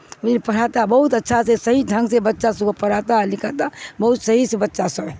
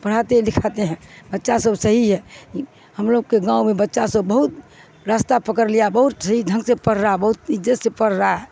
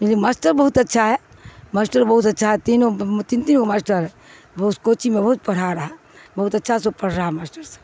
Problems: constant background noise